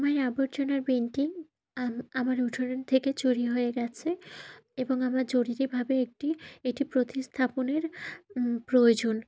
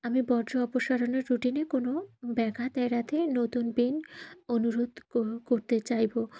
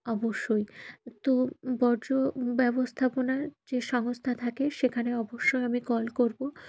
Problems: none marked